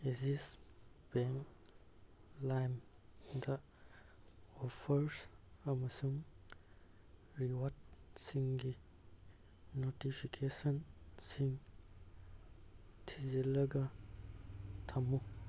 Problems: none marked